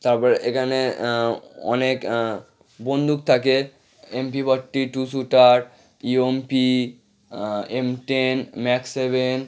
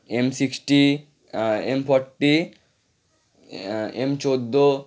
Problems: none marked